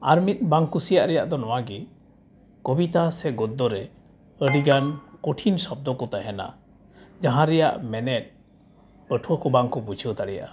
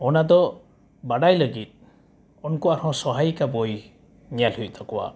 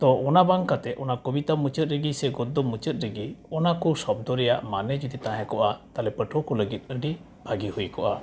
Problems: background sounds at intervals